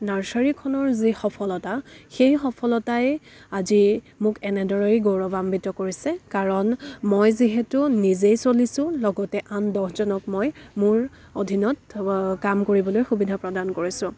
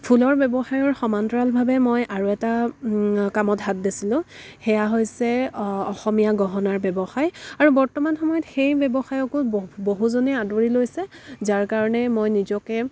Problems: background sounds at intervals, background conversations at intervals